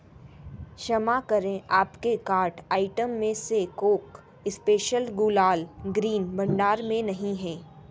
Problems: background sounds at intervals